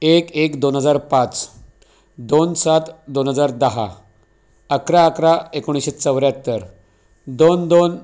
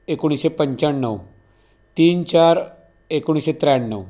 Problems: none marked